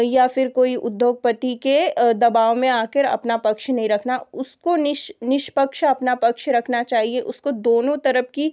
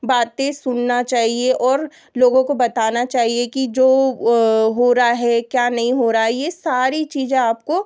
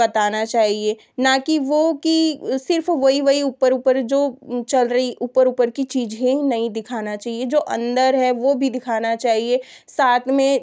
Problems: constant background noise